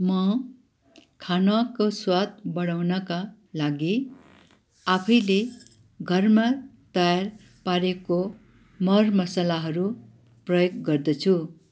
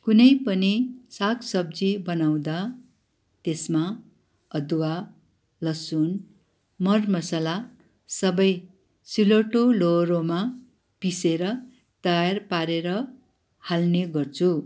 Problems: background sounds at intervals